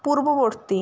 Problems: none marked